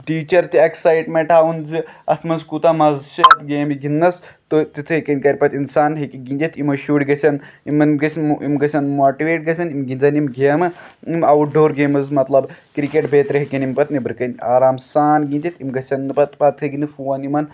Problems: background sounds at intervals